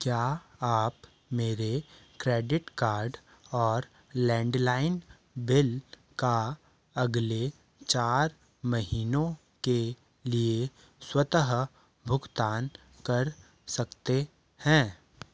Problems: none marked